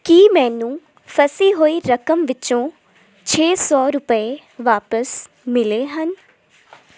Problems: constant background noise